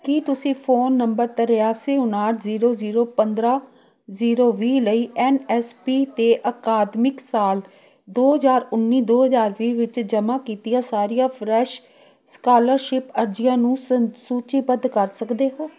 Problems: continuous background conversations